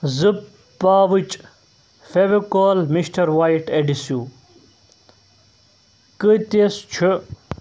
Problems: constant background noise